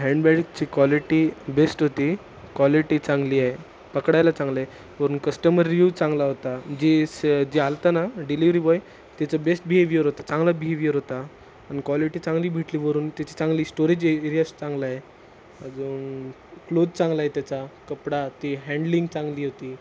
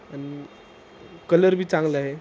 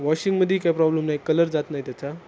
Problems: none marked